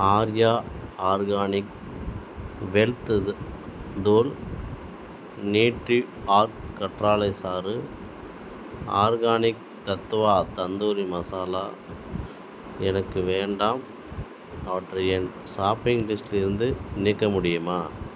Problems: background sounds at intervals